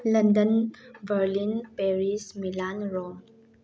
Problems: background sounds at intervals